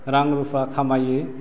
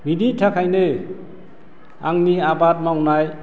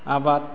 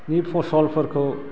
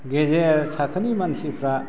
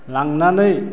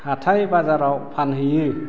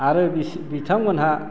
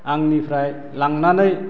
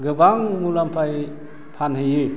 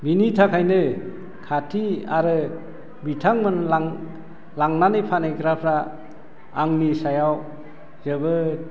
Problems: low volume